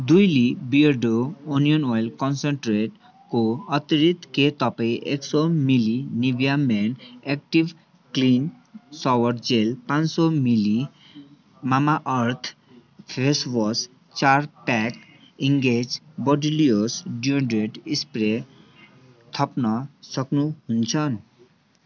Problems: none marked